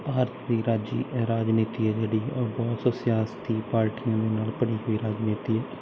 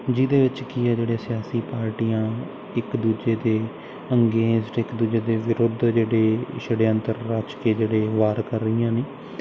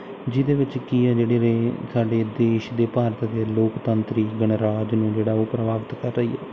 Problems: constant background noise